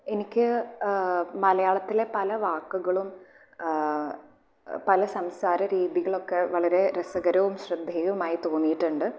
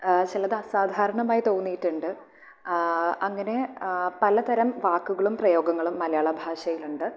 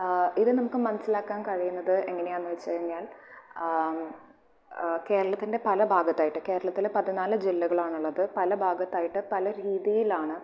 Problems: background sounds at intervals